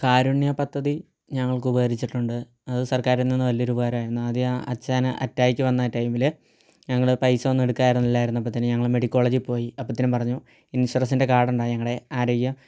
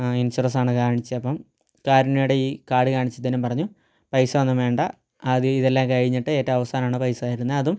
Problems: low volume